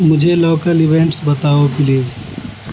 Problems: constant background noise